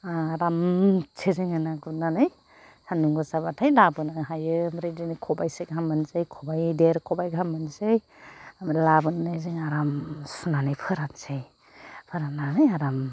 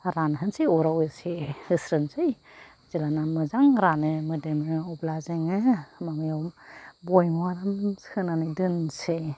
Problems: none marked